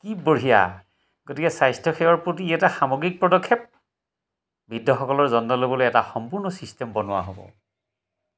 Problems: none marked